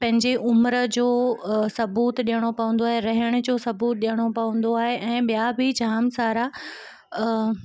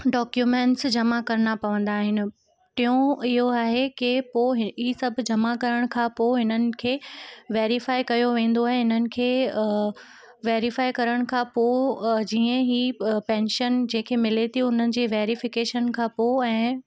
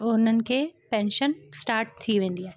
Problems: constant background noise